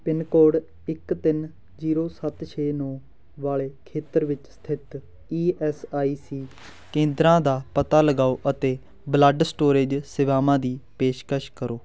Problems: background sounds at intervals, background conversations at intervals